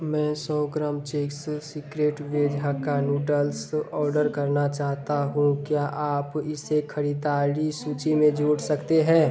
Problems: background sounds at intervals